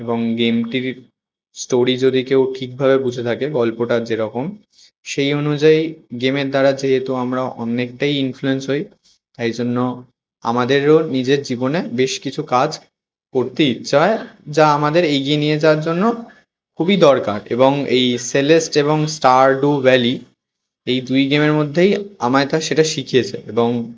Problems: constant background noise